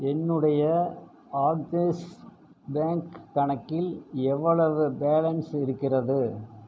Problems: constant background noise